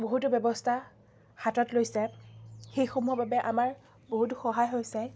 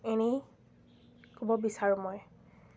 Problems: constant background noise, background conversations at intervals